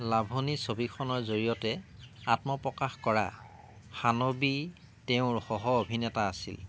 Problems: constant background noise